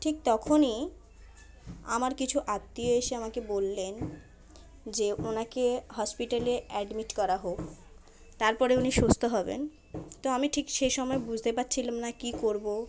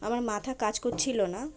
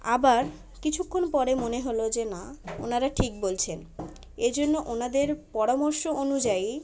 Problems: constant background noise, continuous background conversations